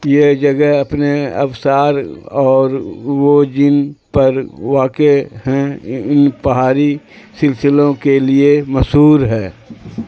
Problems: constant background noise